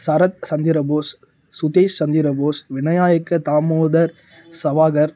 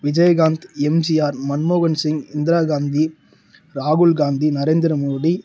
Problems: low volume